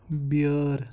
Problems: none marked